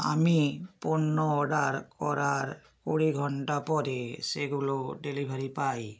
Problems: none marked